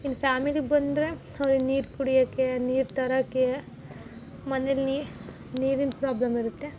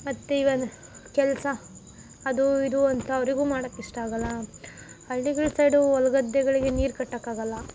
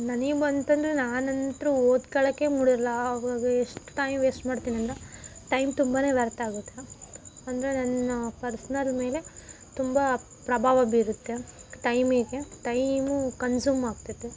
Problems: background sounds at intervals